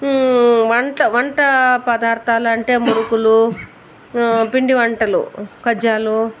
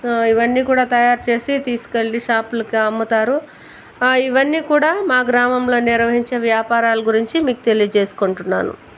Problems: constant background noise, background conversations at intervals